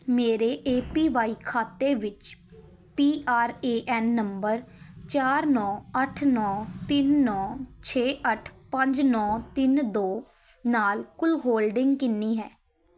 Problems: background sounds at intervals, background conversations at intervals